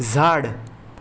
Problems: none marked